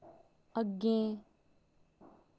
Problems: low volume